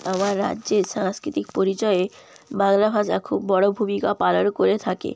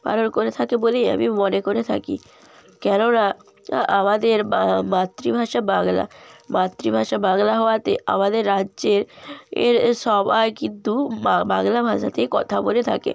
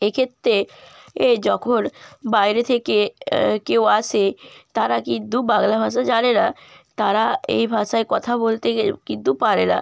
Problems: constant background noise